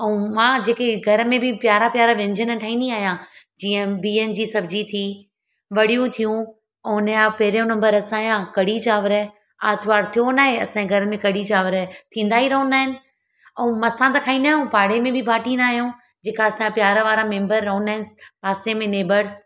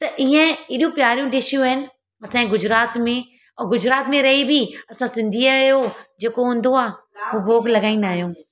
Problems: background conversations at intervals